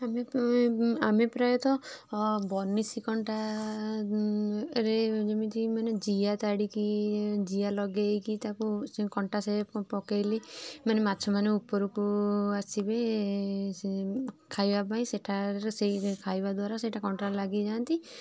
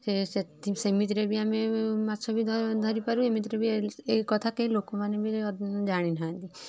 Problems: none marked